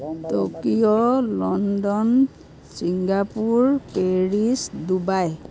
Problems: constant background noise, background conversations at intervals